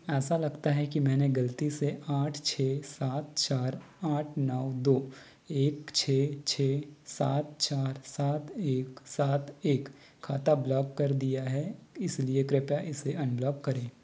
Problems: none marked